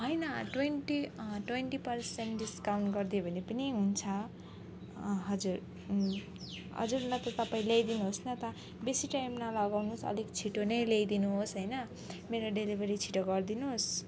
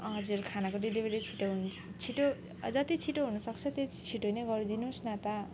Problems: constant background noise, background conversations at intervals